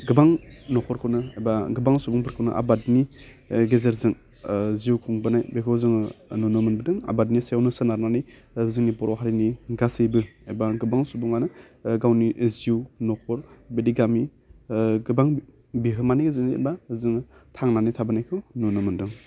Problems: none marked